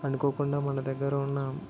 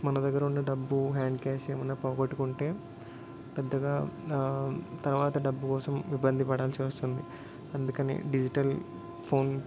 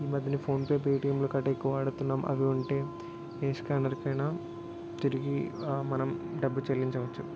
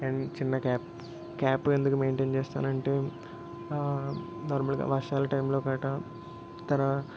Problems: constant background noise